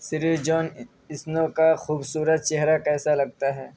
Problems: constant background noise